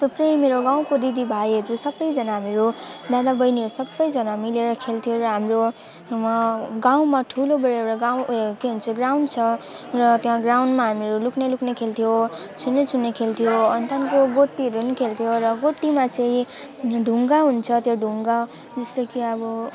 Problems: continuous background conversations